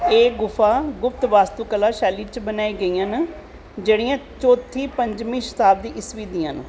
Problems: constant background noise